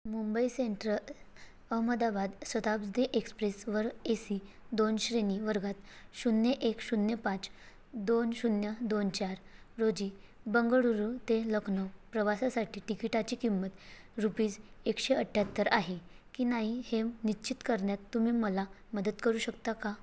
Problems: none marked